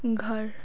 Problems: constant background noise